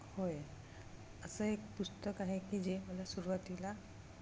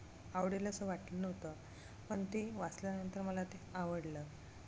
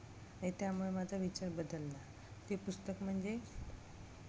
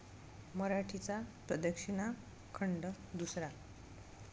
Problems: none marked